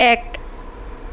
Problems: constant background noise